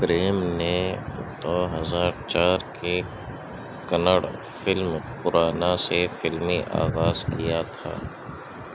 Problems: constant background noise, low volume